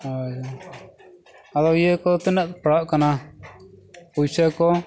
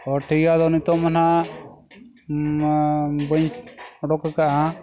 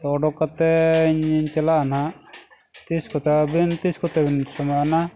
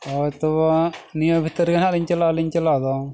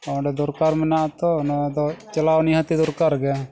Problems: background sounds at intervals